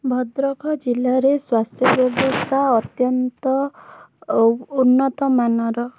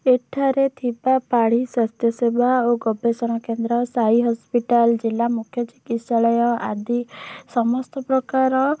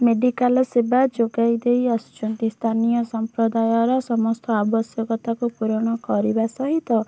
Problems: background sounds at intervals